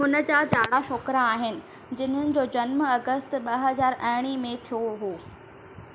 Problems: constant background noise, echo